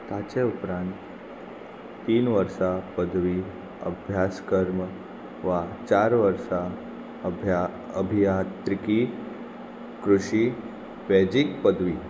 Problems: constant background noise